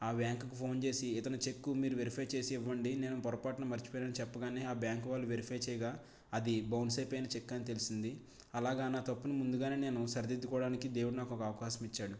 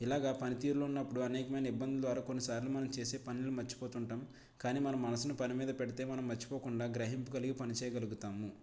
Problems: none marked